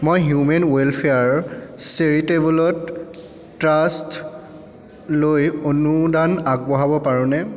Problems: background conversations at intervals, echo